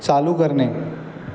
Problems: none marked